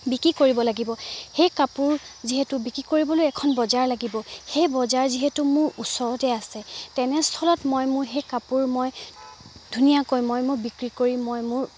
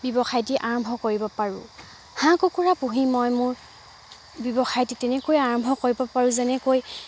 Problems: background sounds at intervals